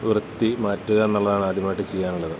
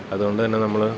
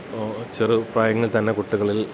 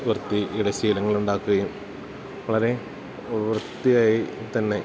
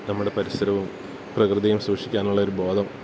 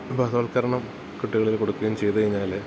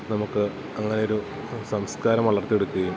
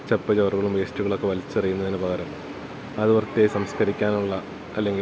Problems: constant background noise